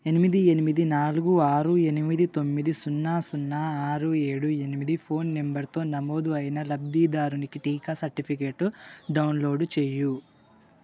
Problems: none marked